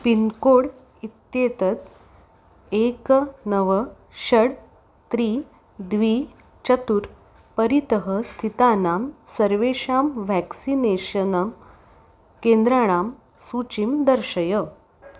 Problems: none marked